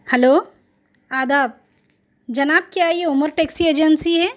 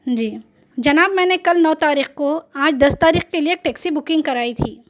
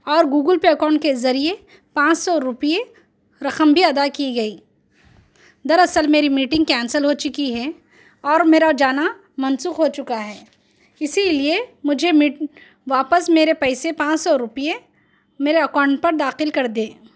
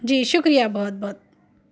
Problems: none marked